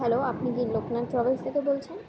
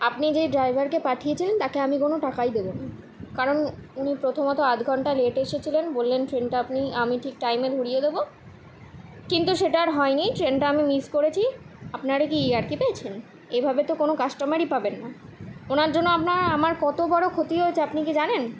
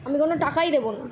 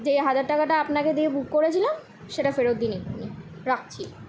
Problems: constant background noise